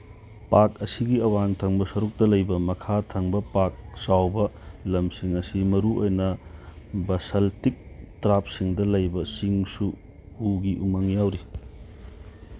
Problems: background sounds at intervals, background conversations at intervals